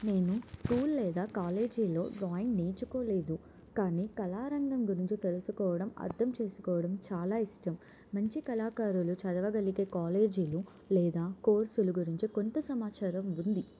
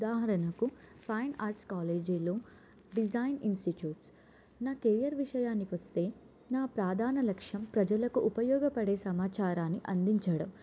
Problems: none marked